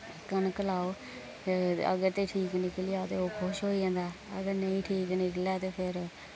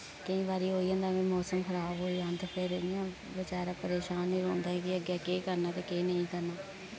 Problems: constant background noise, low volume